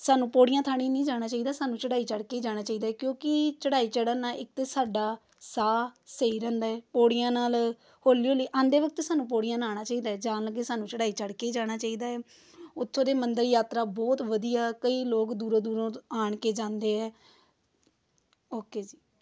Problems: none marked